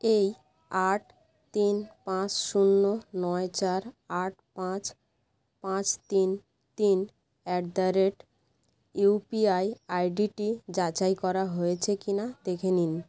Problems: constant background noise